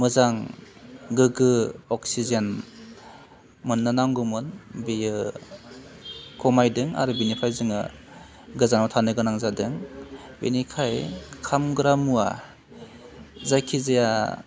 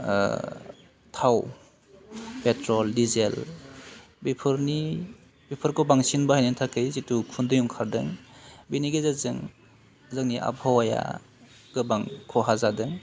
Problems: constant background noise